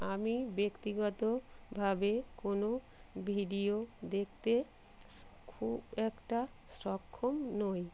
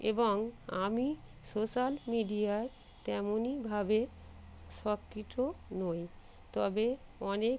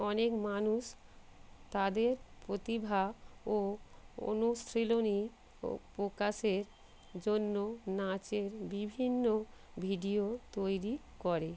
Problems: constant background noise